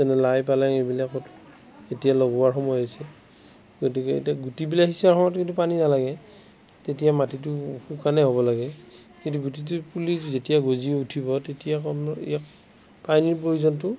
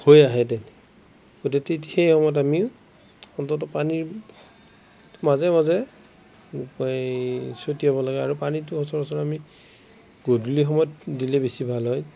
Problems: constant background noise